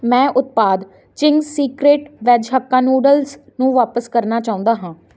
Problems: constant background noise